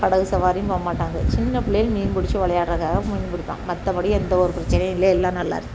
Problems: constant background noise